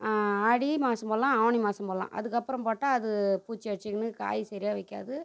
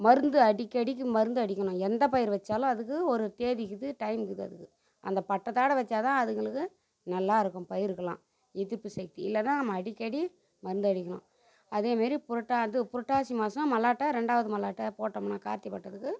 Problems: none marked